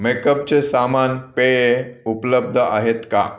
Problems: background sounds at intervals